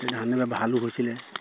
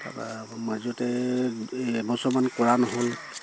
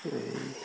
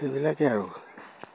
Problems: constant background noise